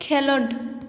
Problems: echo